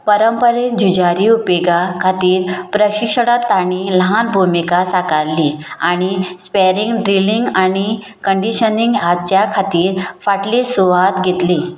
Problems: none marked